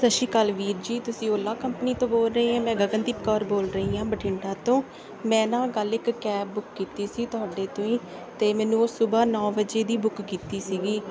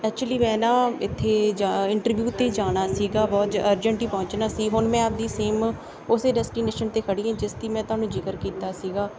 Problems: background sounds at intervals, background conversations at intervals